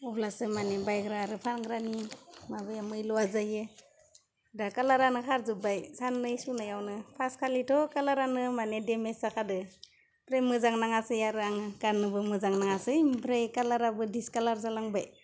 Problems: none marked